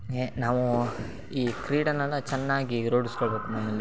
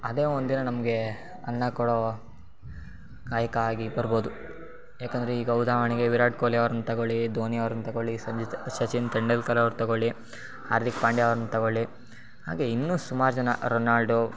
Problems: background sounds at intervals